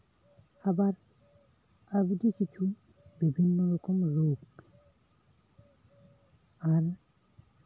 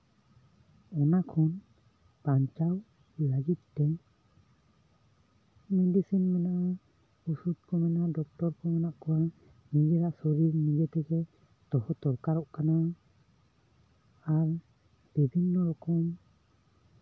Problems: constant background noise